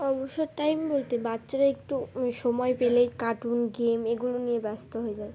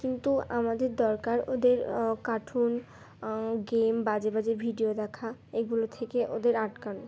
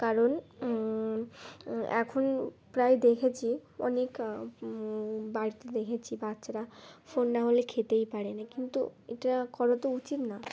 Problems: constant background noise, continuous background conversations